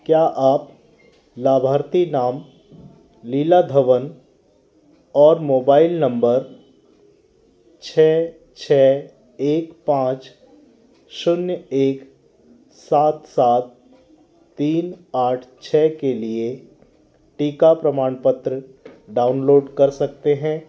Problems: constant background noise, continuous background conversations